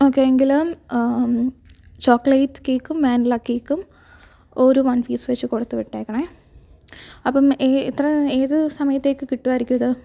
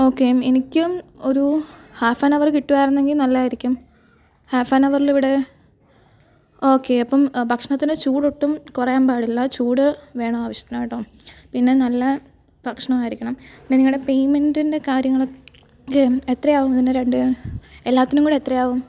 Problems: background sounds at intervals